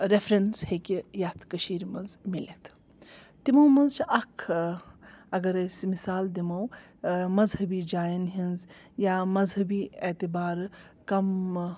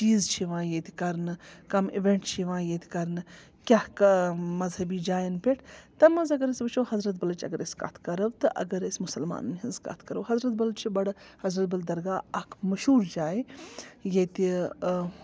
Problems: background sounds at intervals, background conversations at intervals